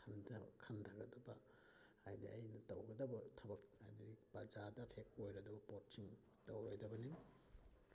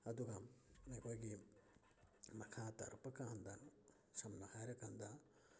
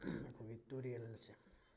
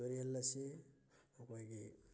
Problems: background sounds at intervals, low volume